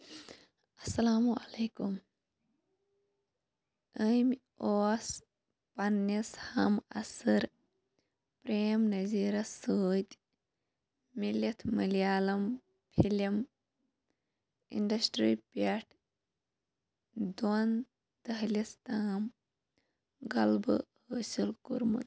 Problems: constant background noise, low volume